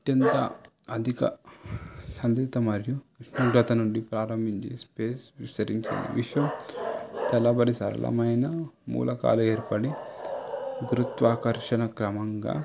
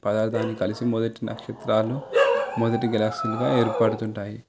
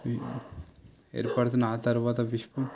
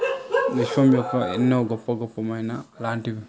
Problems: background sounds at intervals